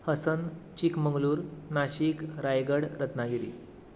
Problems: background sounds at intervals